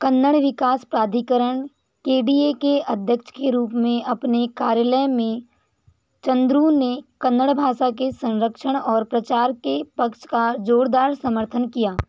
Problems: constant background noise